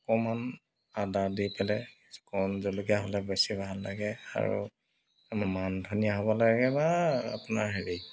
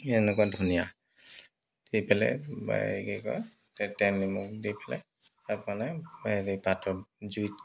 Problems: constant background noise